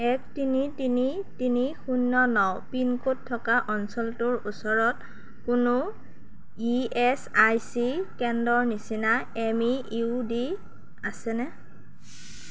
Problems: none marked